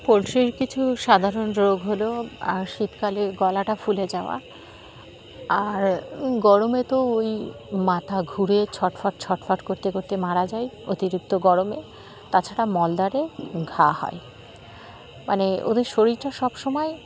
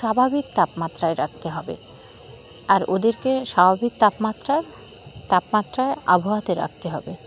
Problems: constant background noise, continuous background conversations